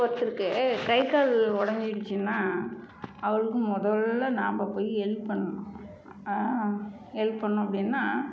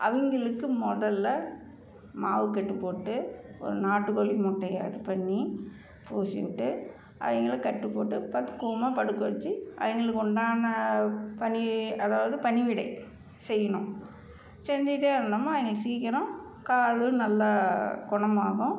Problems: none marked